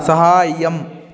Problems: continuous background conversations